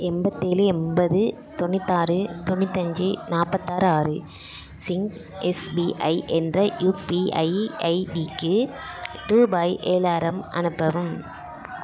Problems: continuous background conversations